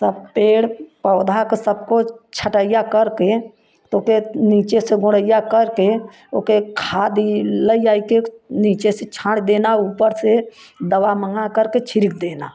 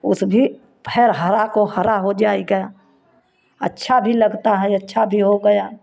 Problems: none marked